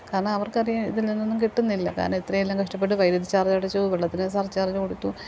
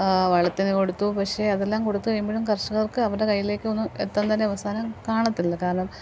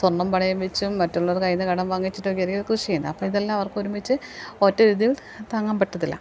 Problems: none marked